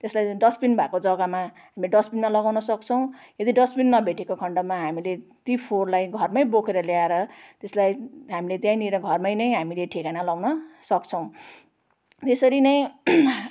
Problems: none marked